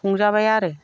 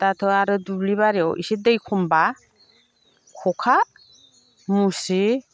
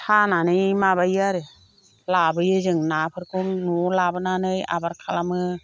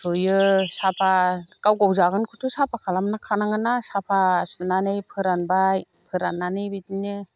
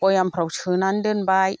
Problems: none marked